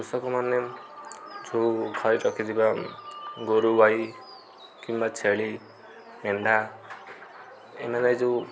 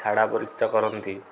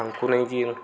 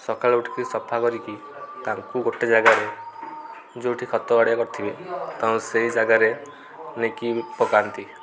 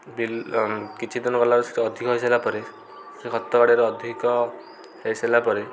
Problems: constant background noise